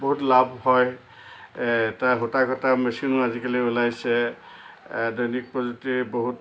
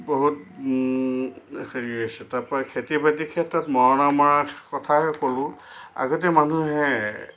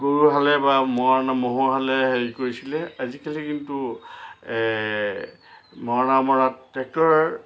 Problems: constant background noise